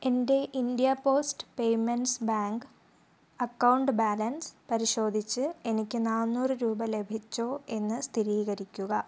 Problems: low volume